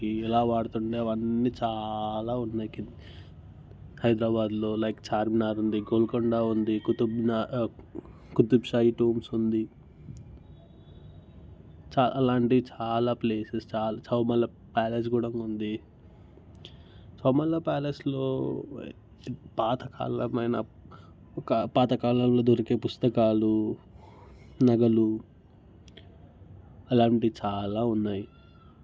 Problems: background sounds at intervals